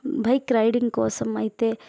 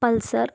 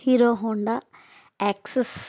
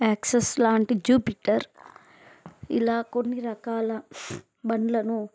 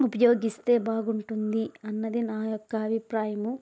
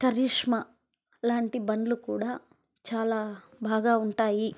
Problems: background sounds at intervals